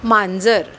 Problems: constant background noise